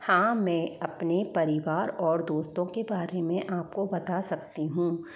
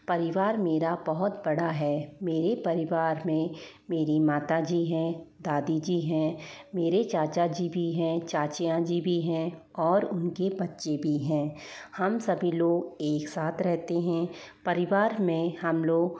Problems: echo